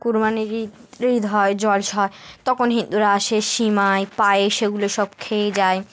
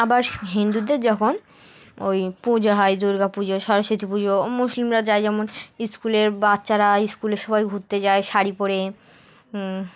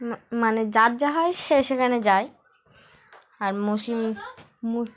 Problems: background sounds at intervals, background conversations at intervals